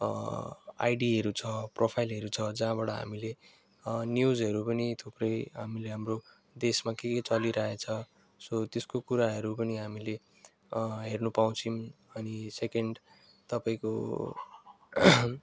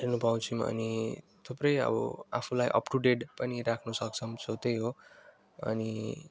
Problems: background sounds at intervals